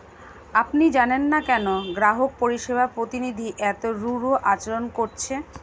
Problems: constant background noise